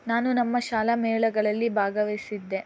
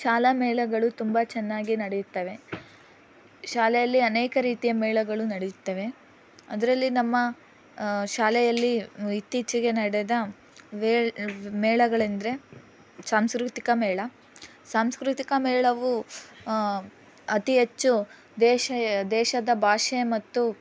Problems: background conversations at intervals